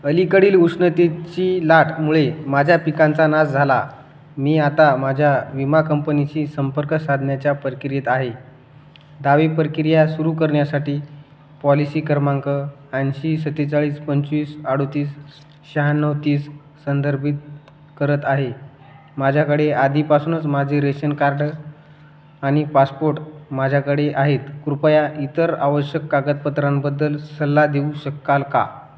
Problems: none marked